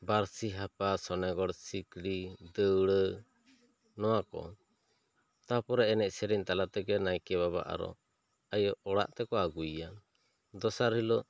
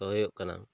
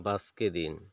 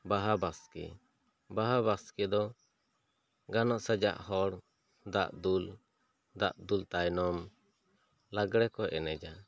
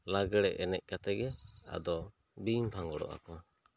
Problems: none marked